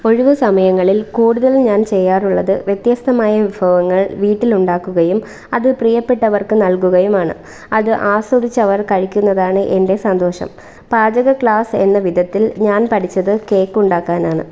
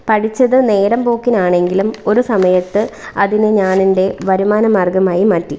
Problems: none marked